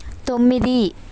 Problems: constant background noise